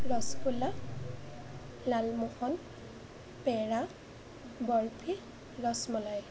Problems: none marked